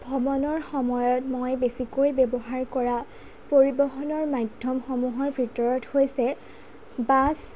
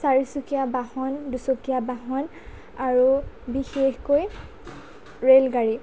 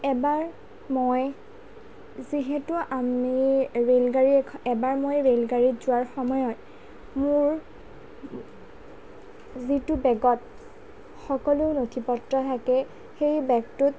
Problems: low volume